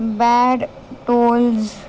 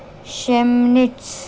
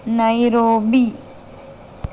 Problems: none marked